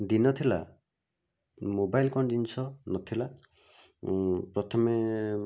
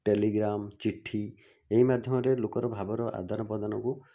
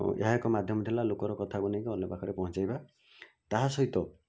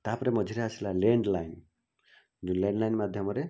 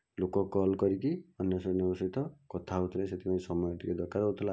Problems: low volume